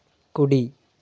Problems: none marked